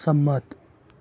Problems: none marked